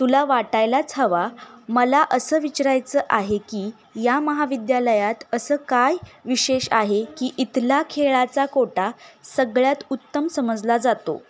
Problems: constant background noise